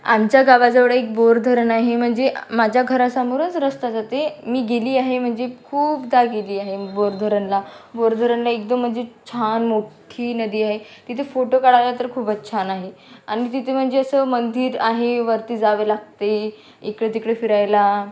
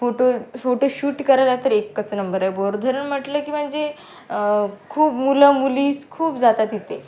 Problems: constant background noise